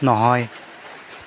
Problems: constant background noise